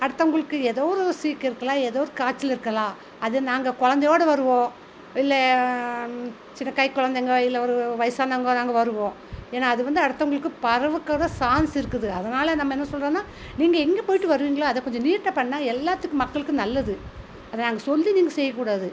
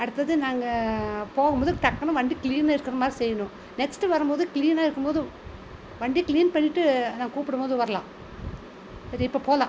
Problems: constant background noise